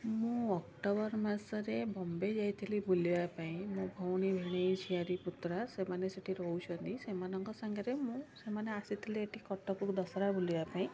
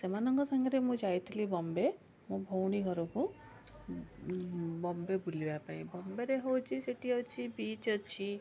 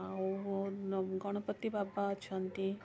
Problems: constant background noise, continuous background conversations